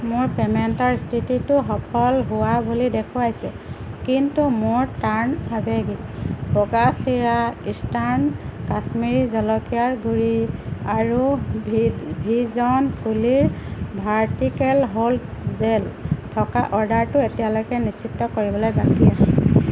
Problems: constant background noise